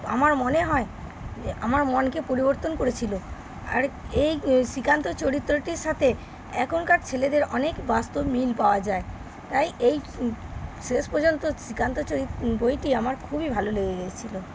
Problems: constant background noise